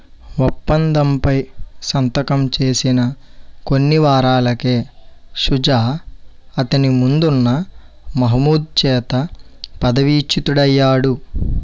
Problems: background sounds at intervals